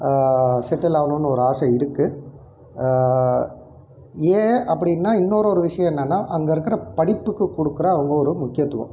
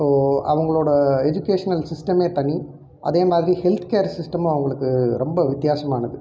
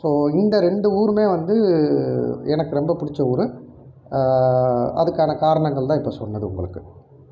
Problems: none marked